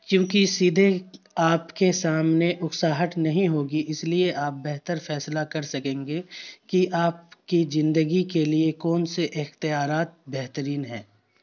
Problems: none marked